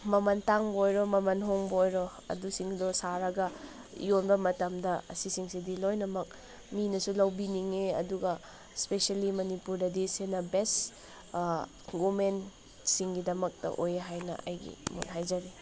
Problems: none marked